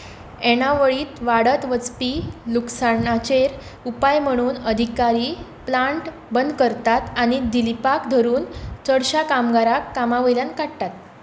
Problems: constant background noise